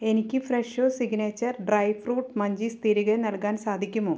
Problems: low volume